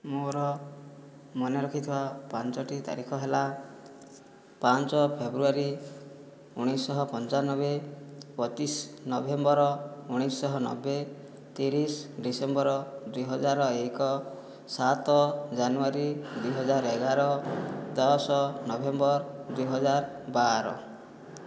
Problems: background sounds at intervals, low volume